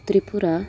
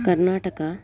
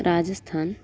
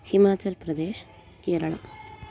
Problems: continuous background conversations